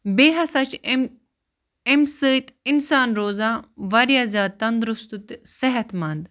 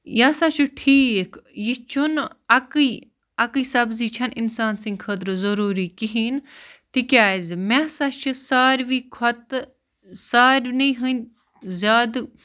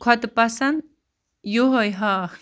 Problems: constant background noise